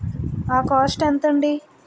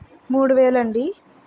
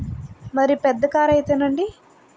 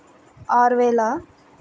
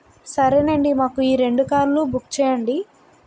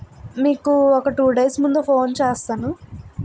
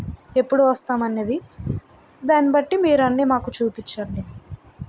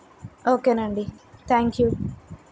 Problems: constant background noise